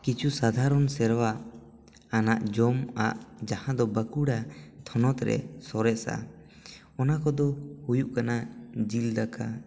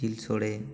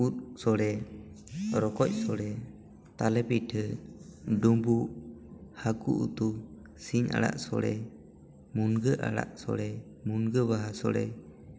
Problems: background sounds at intervals, background conversations at intervals